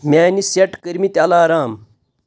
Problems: none marked